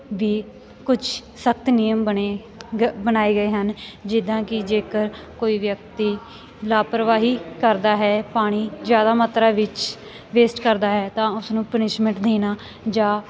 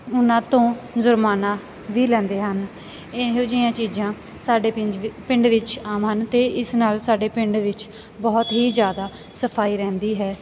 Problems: none marked